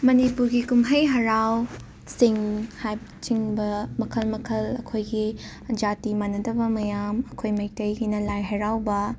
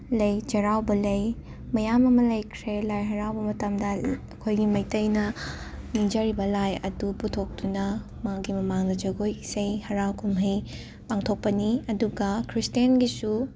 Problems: background sounds at intervals, background conversations at intervals